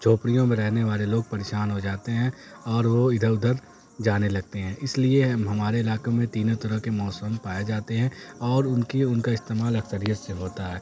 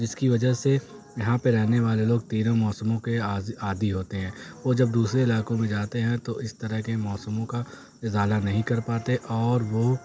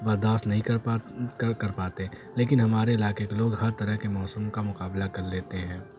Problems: constant background noise